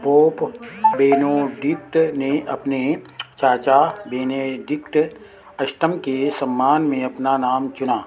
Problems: none marked